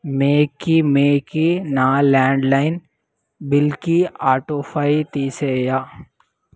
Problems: none marked